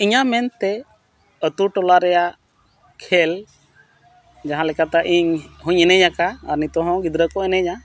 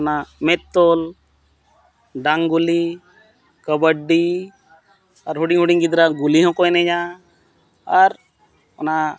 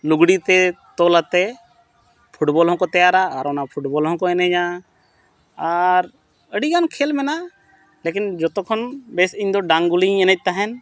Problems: constant background noise